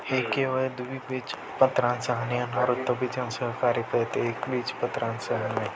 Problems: constant background noise